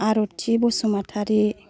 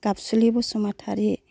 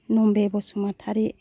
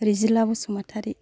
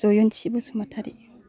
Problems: background conversations at intervals